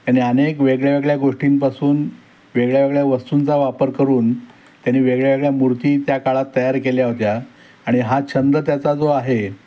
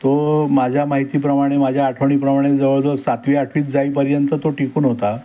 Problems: constant background noise